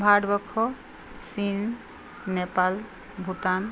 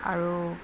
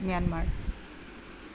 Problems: constant background noise